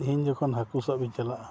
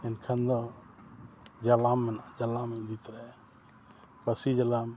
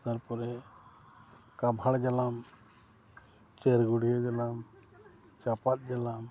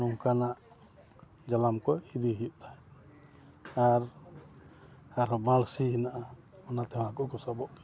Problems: background sounds at intervals, low volume